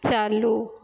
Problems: low volume